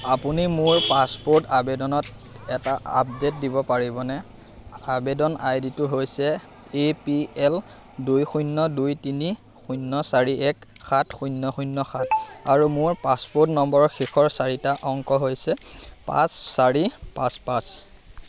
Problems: constant background noise, background conversations at intervals